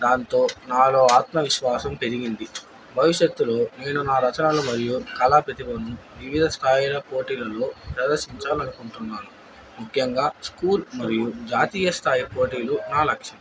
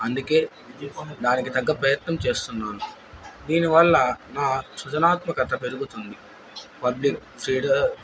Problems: background sounds at intervals